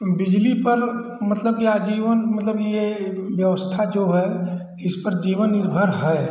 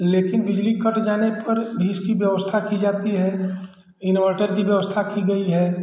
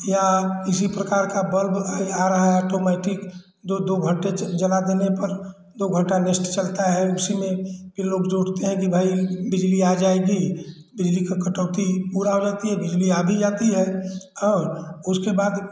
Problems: none marked